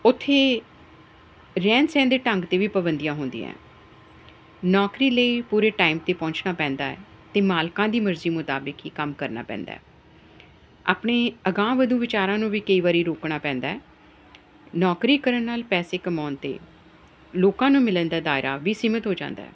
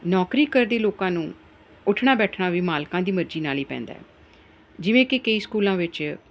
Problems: none marked